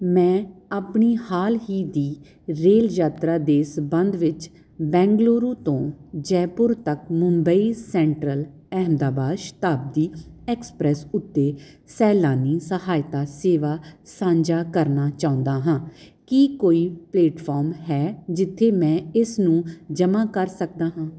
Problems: none marked